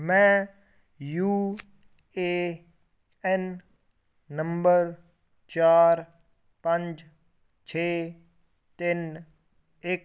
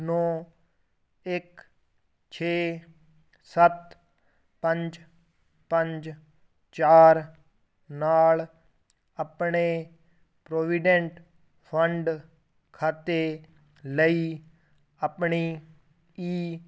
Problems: none marked